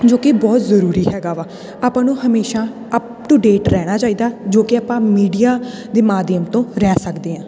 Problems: none marked